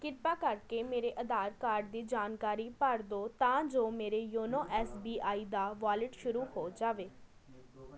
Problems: constant background noise, background conversations at intervals